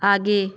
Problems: background sounds at intervals